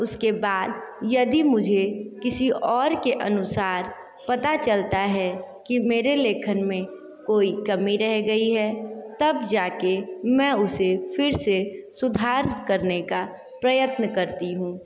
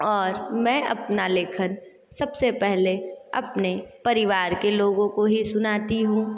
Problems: echo